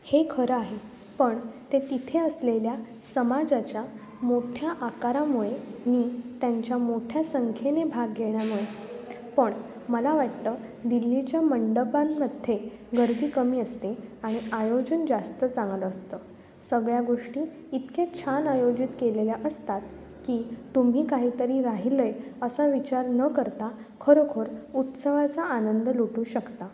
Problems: constant background noise, background conversations at intervals